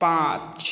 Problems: none marked